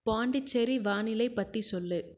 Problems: low volume